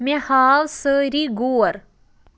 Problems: none marked